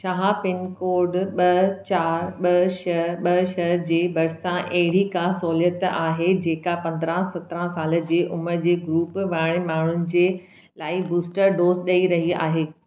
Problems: none marked